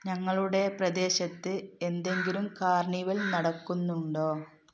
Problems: background sounds at intervals